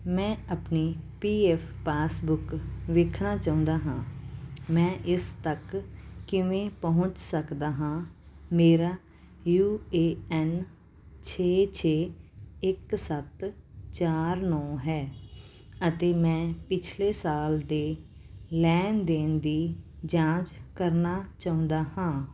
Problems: background sounds at intervals